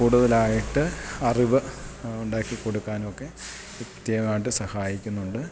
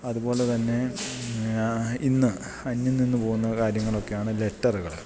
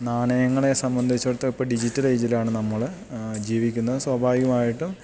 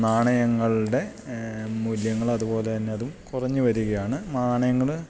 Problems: background sounds at intervals